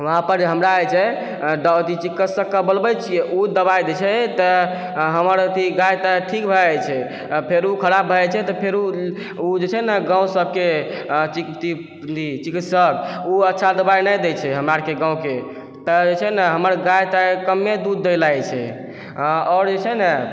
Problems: none marked